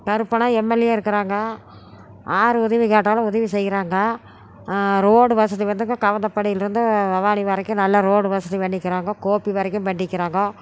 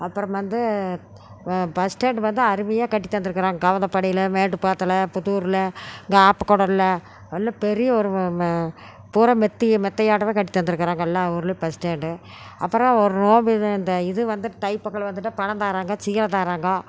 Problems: none marked